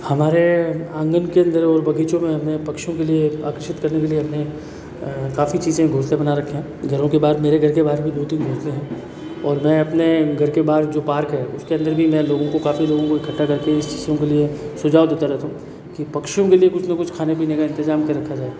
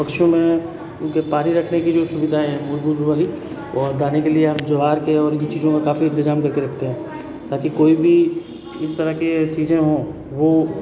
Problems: background sounds at intervals, background conversations at intervals